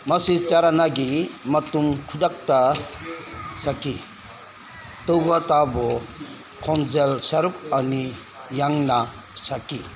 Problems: constant background noise